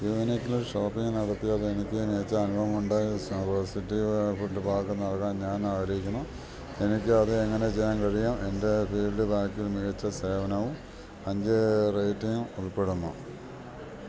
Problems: none marked